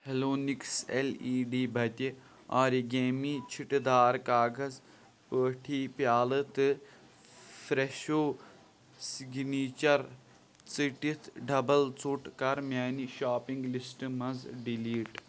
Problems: background sounds at intervals